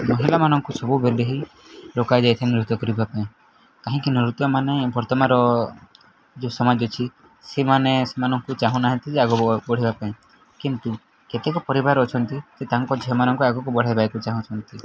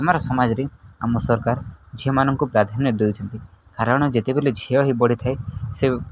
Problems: constant background noise